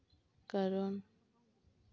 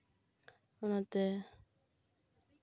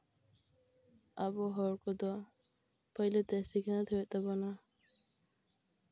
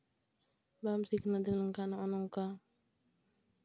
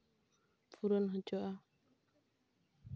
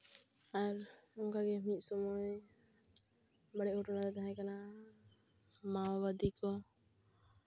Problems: background sounds at intervals